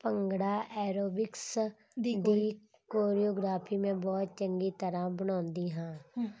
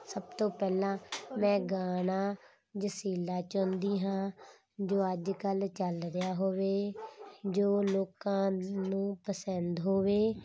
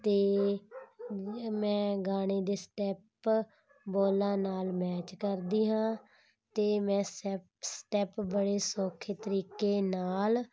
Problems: none marked